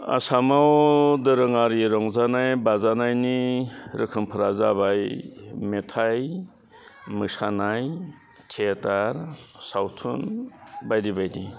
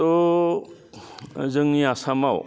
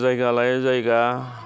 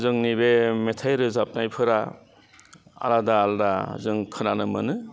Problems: constant background noise